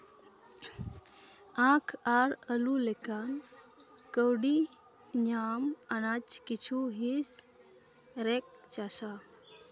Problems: none marked